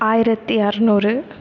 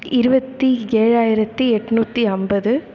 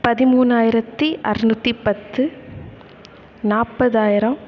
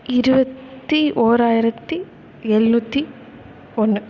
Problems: none marked